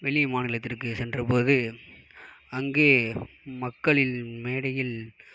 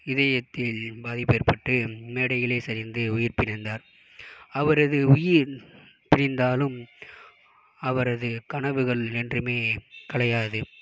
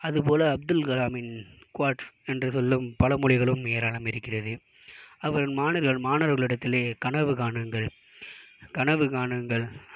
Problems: background sounds at intervals